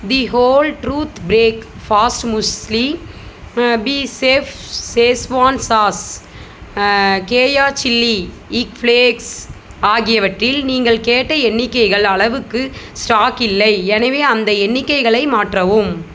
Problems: none marked